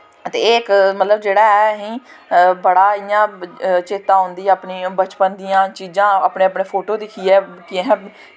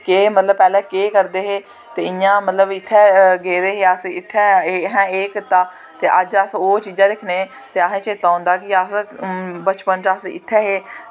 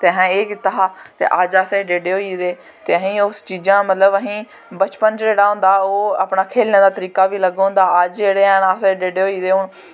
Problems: constant background noise